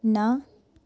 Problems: none marked